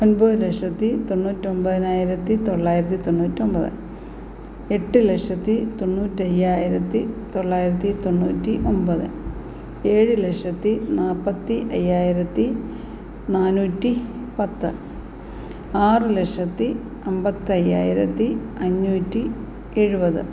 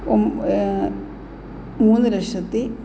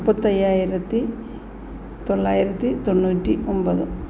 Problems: none marked